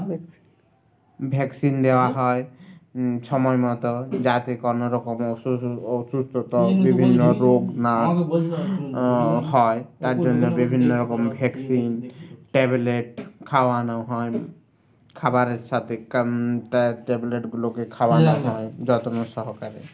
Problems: none marked